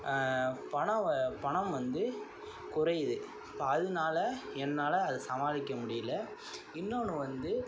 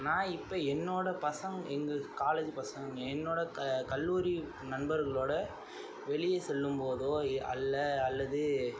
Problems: constant background noise, low volume